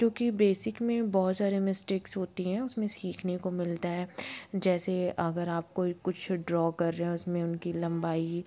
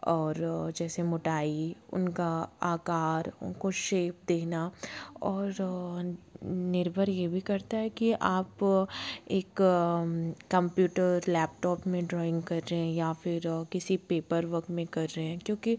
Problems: constant background noise